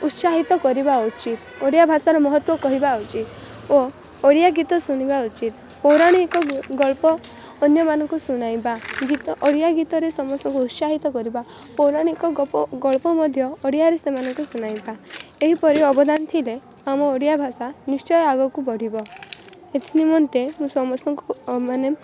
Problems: constant background noise